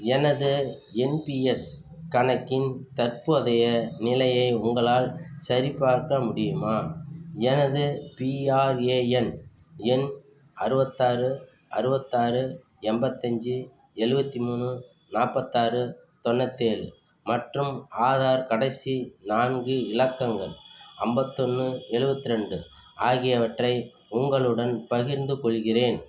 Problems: none marked